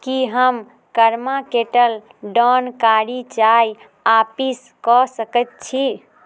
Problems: none marked